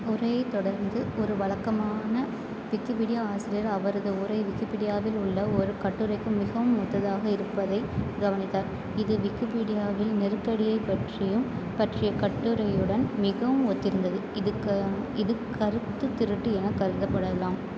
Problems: constant background noise